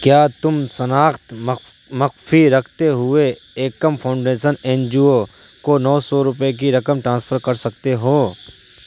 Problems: constant background noise